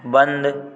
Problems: background sounds at intervals